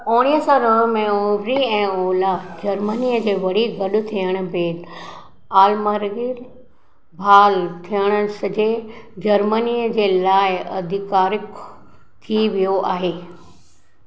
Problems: echo